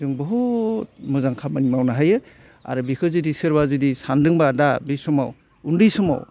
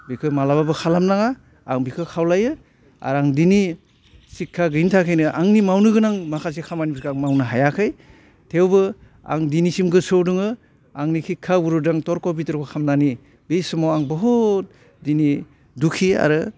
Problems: constant background noise